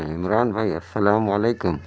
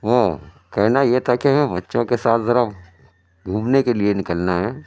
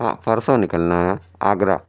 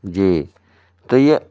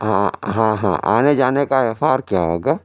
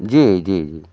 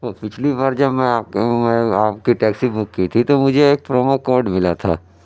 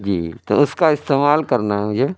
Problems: none marked